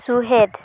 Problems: constant background noise